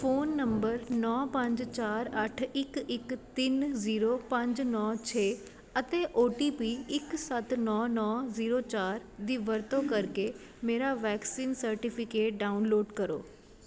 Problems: constant background noise